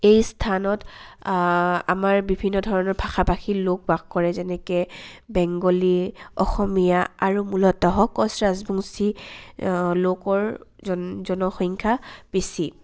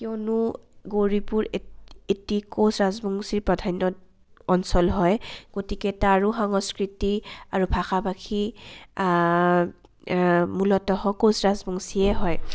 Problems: constant background noise